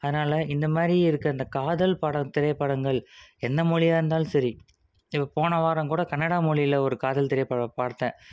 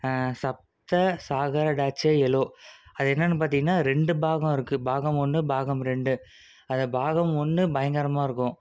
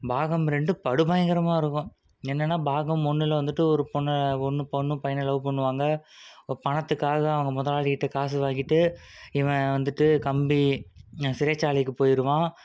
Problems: none marked